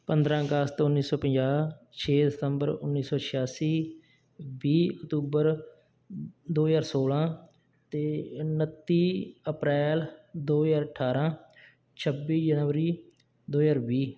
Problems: none marked